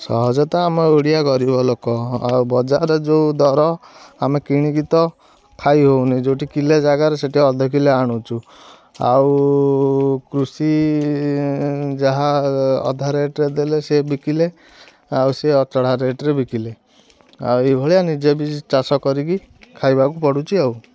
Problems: constant background noise